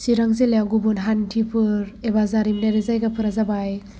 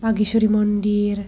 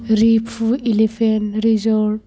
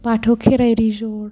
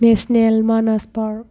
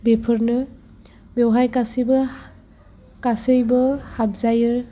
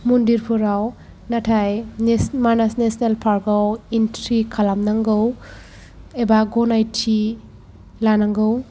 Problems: background sounds at intervals